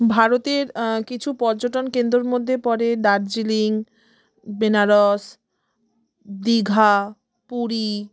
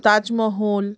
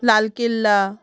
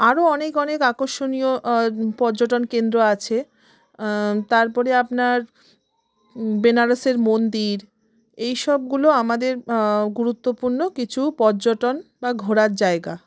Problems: background conversations at intervals